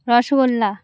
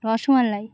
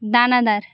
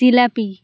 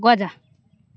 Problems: none marked